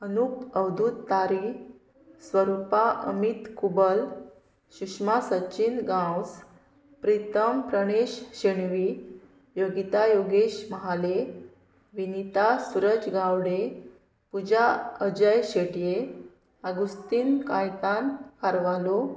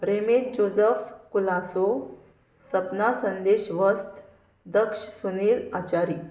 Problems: none marked